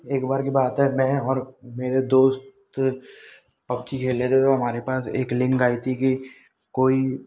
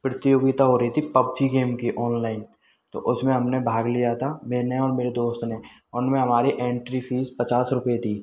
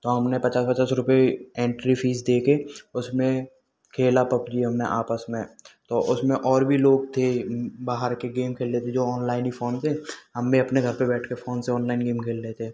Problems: background sounds at intervals